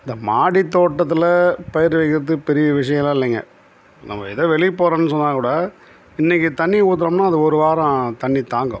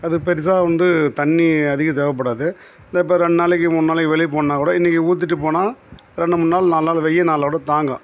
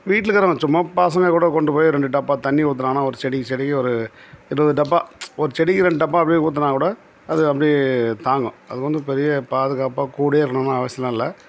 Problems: none marked